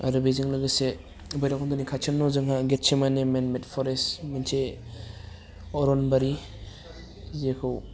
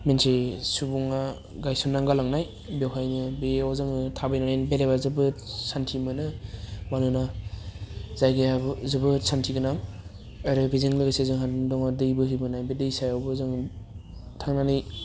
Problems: low volume